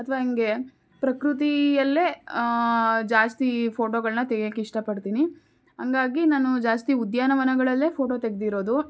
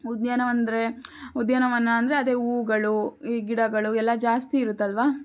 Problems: none marked